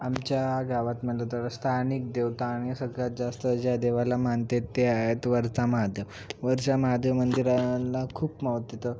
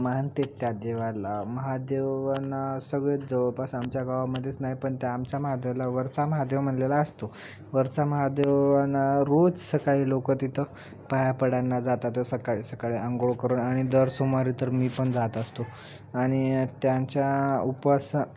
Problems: constant background noise, continuous background conversations